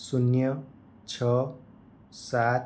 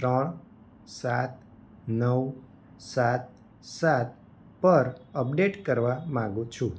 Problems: none marked